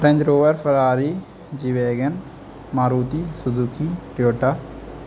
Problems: constant background noise